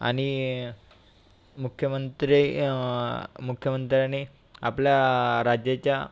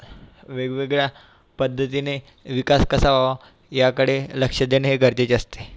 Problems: constant background noise